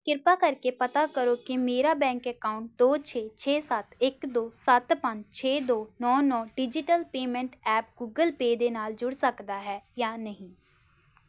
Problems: constant background noise